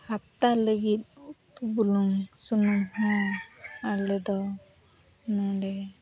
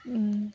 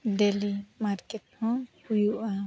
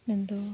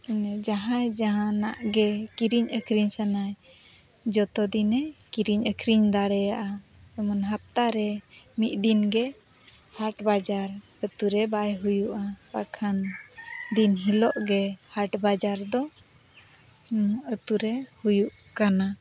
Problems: constant background noise, background conversations at intervals